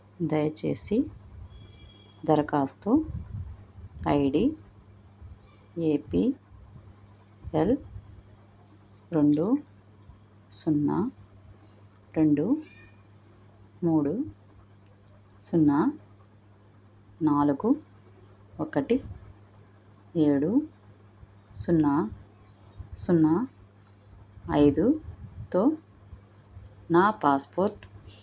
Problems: none marked